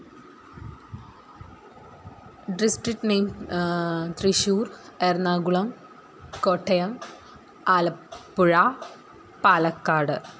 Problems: background sounds at intervals